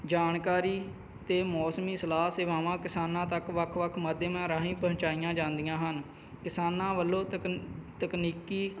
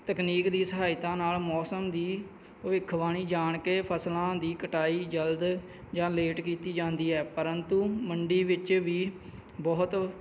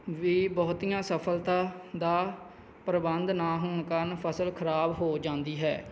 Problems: none marked